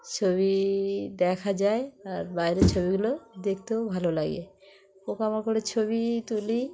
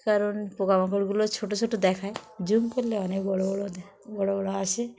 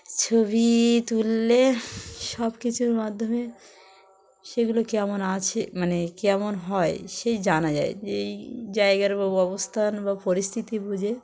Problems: constant background noise, background conversations at intervals